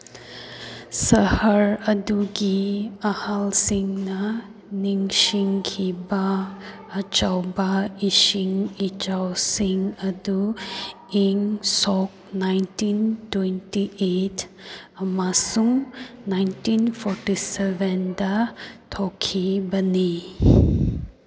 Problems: background sounds at intervals